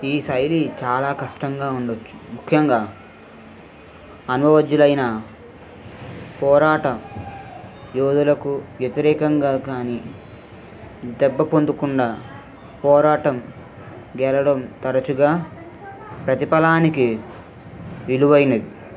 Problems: constant background noise, background conversations at intervals